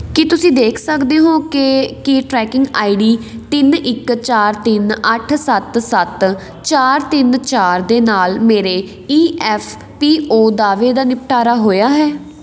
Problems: none marked